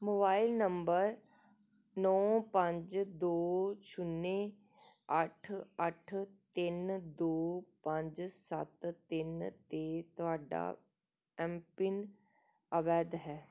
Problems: none marked